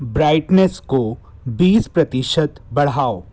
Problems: constant background noise